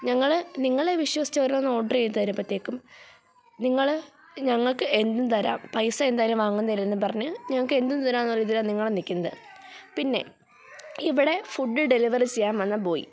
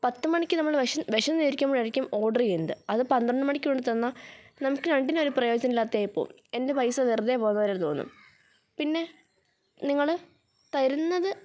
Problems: background sounds at intervals